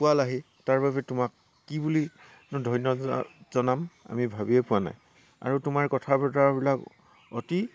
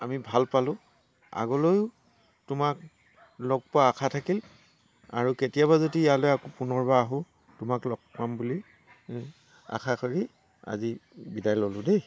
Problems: constant background noise